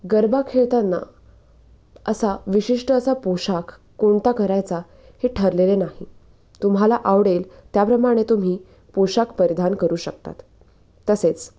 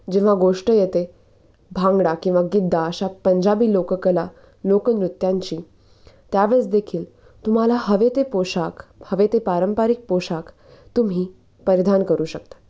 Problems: none marked